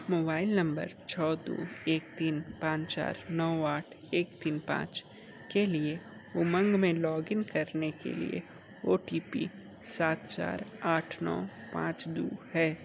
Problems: constant background noise